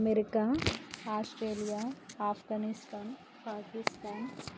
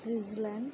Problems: constant background noise